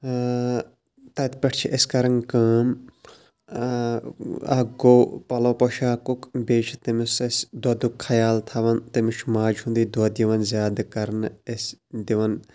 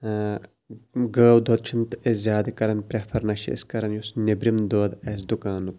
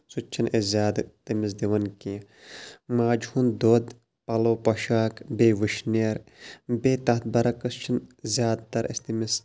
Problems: background sounds at intervals